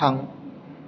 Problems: none marked